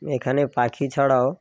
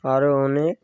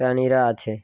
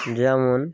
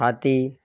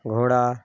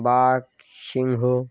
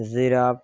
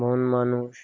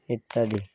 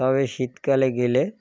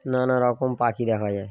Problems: background sounds at intervals